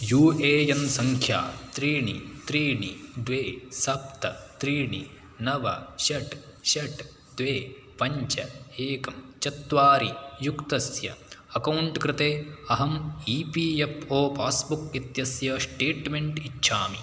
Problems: none marked